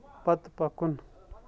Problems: background sounds at intervals